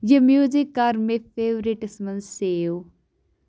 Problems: none marked